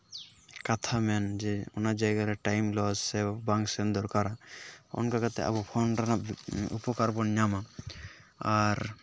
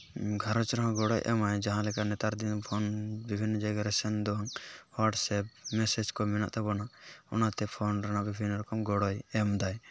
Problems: none marked